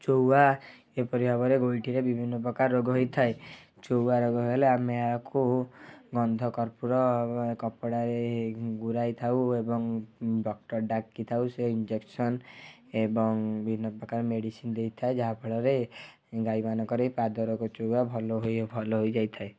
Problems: background sounds at intervals